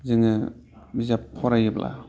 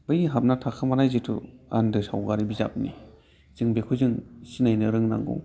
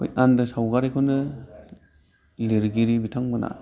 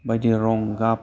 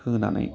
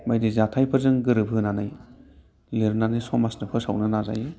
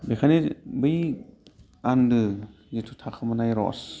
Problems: low volume